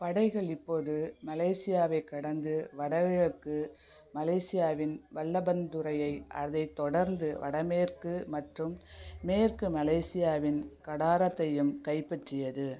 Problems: none marked